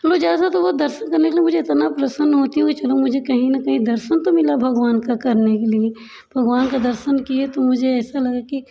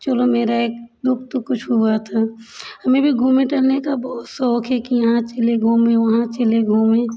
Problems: constant background noise, continuous background conversations